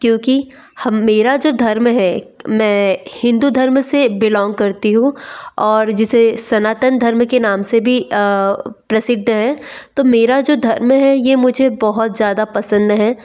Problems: background sounds at intervals